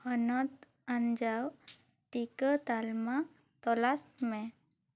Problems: none marked